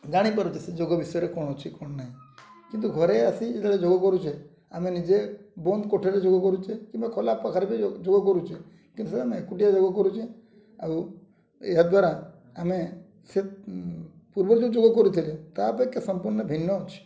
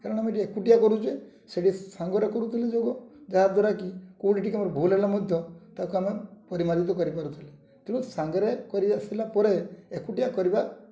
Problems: low volume